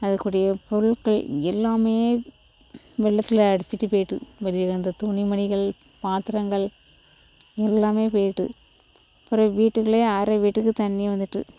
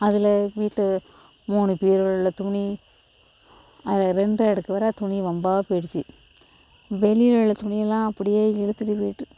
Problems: constant background noise